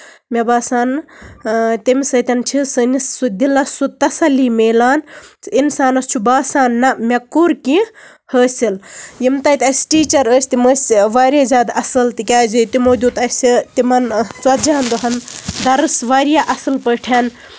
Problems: background sounds at intervals, background conversations at intervals